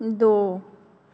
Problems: constant background noise, echo